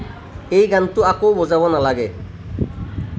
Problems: none marked